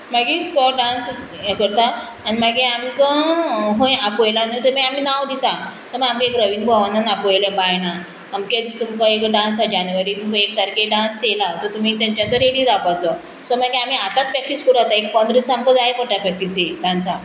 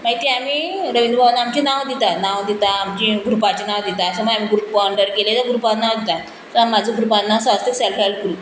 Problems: constant background noise